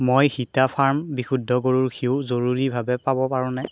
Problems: none marked